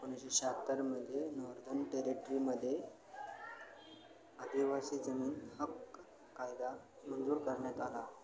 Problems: constant background noise, low volume